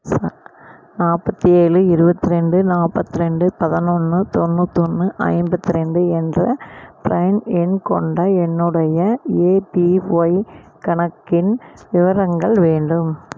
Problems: none marked